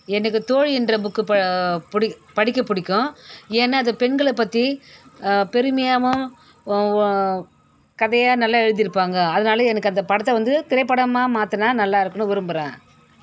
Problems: background sounds at intervals